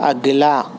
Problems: constant background noise